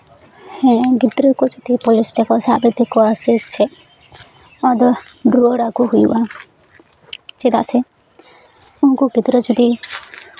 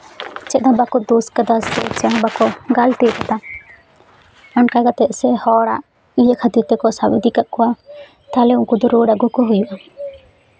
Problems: none marked